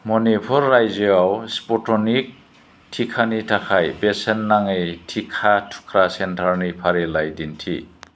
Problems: none marked